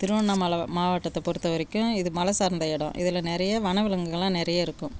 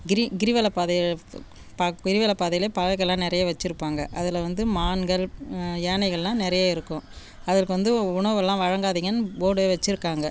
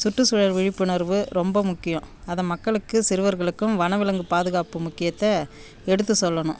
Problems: none marked